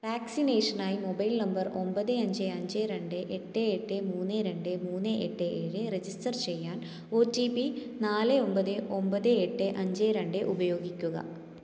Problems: echo